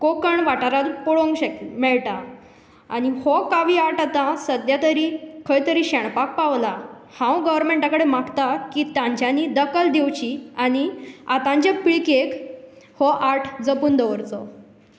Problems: background sounds at intervals